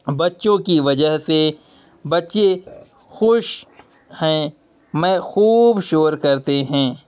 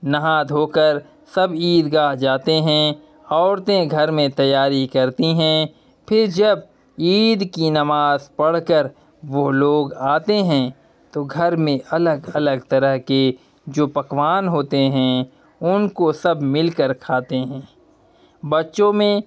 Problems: none marked